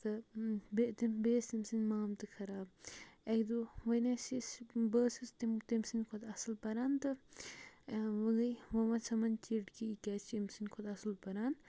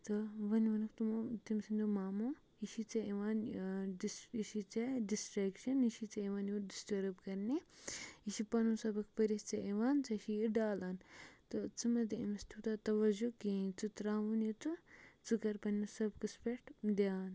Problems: background sounds at intervals, low volume